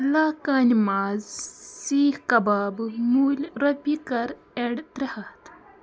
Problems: constant background noise, continuous background conversations